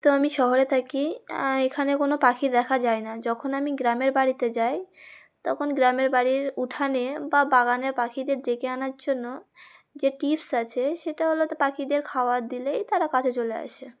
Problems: none marked